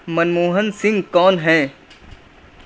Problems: constant background noise